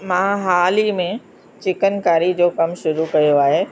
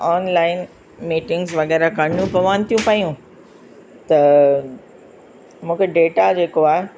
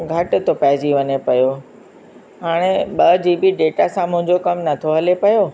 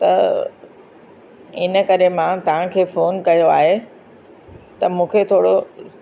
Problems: constant background noise, echo